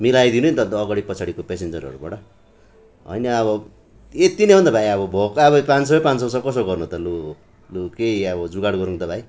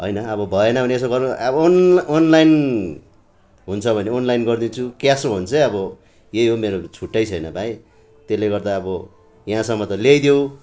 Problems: background conversations at intervals